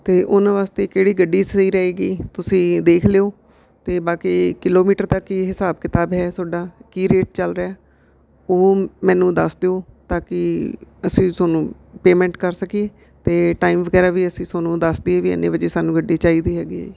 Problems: none marked